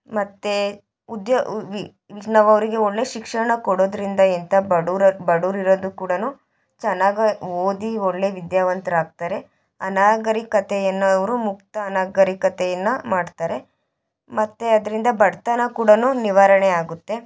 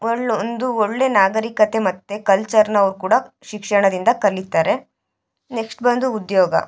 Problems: background conversations at intervals